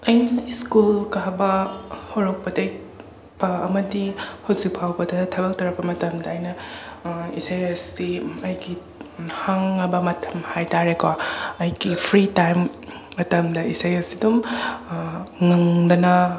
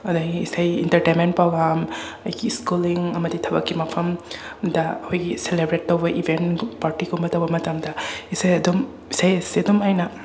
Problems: constant background noise, background conversations at intervals